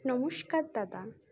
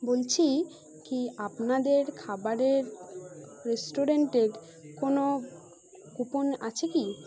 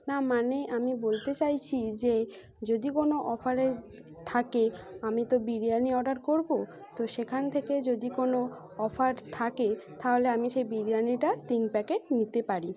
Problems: background sounds at intervals